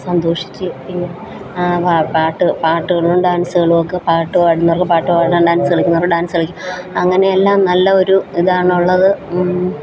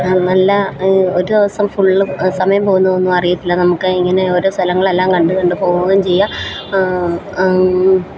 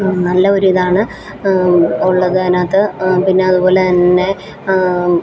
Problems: constant background noise, background conversations at intervals